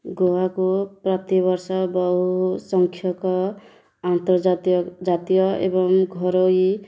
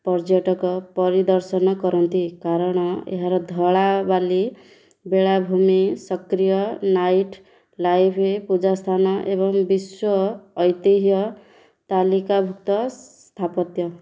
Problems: none marked